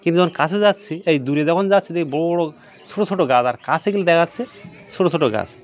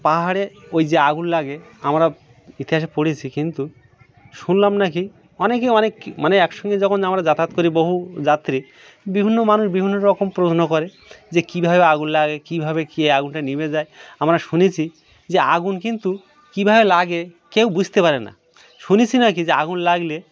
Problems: background sounds at intervals, background conversations at intervals